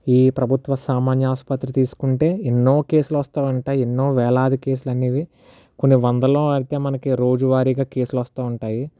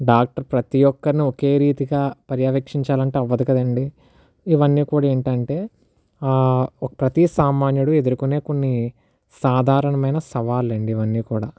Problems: none marked